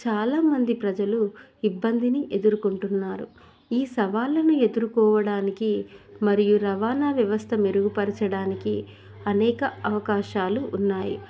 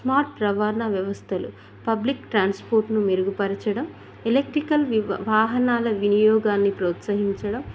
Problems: none marked